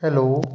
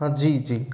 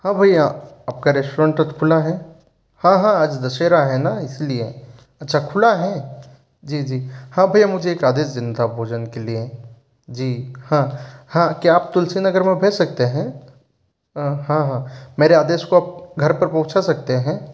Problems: background sounds at intervals